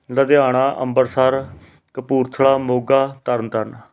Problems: none marked